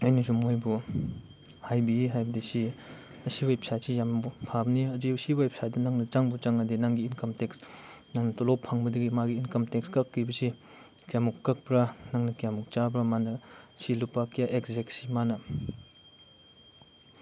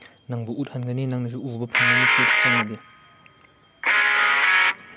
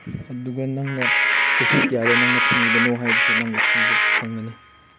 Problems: background sounds at intervals